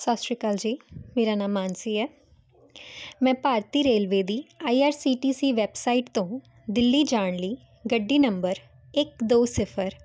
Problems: constant background noise